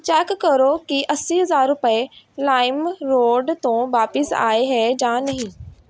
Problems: background sounds at intervals